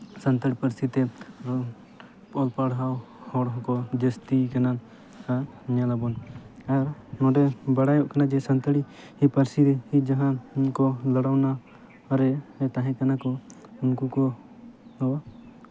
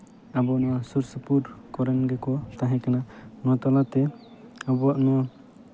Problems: none marked